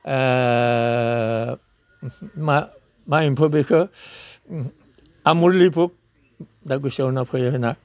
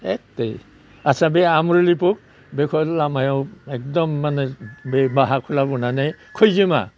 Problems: none marked